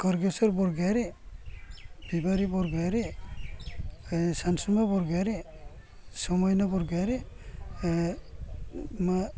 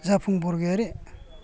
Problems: low volume